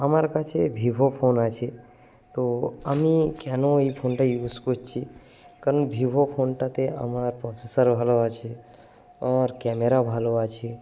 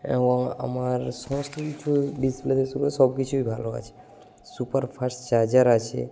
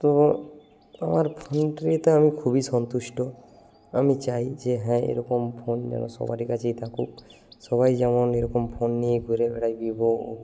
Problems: background sounds at intervals